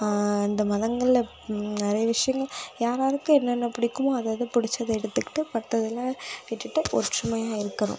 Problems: none marked